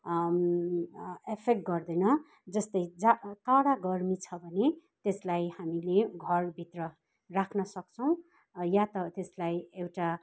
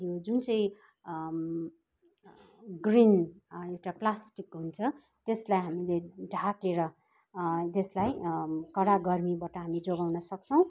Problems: constant background noise, background conversations at intervals